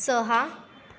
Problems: constant background noise, background conversations at intervals